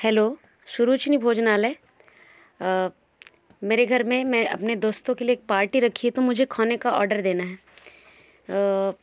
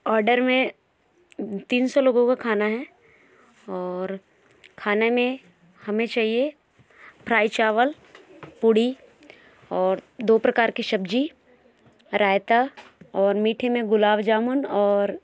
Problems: background sounds at intervals, background conversations at intervals